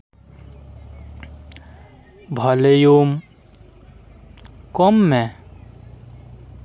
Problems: none marked